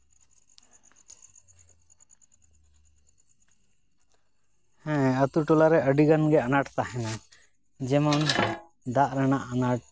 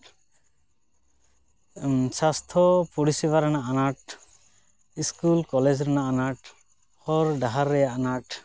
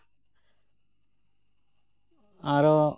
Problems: background sounds at intervals